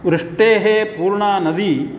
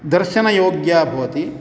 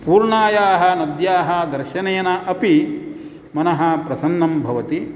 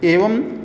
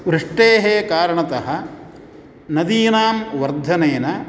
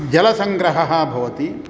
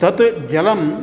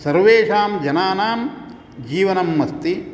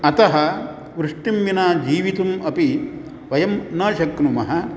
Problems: background sounds at intervals